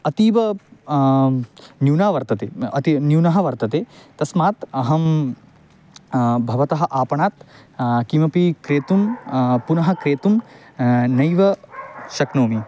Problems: background sounds at intervals